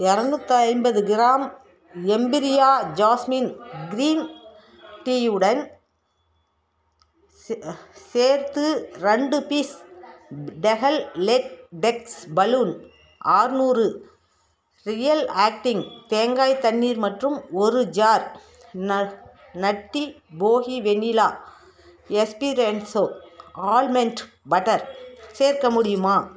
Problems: background conversations at intervals